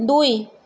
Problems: none marked